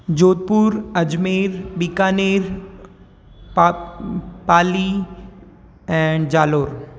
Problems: none marked